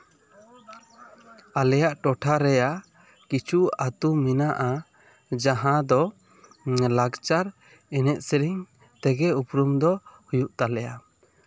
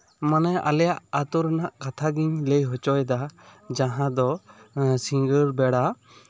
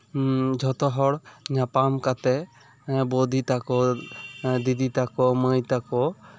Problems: background conversations at intervals